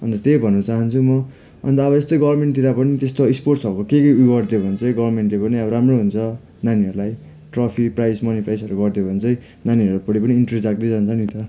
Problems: constant background noise